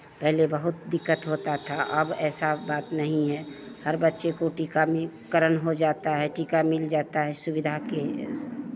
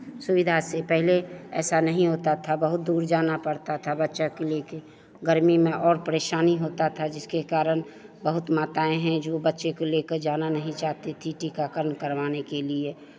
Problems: constant background noise, continuous background conversations